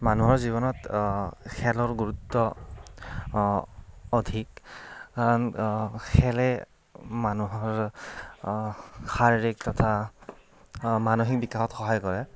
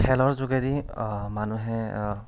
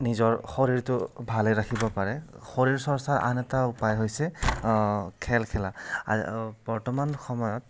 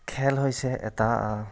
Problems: none marked